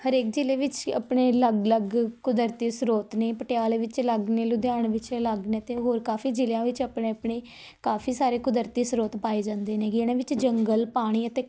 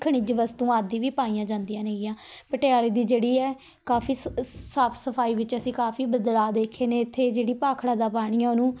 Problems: none marked